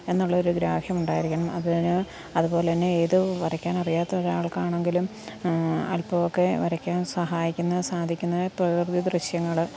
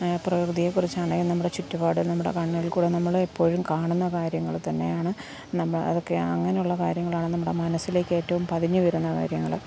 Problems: background sounds at intervals, low volume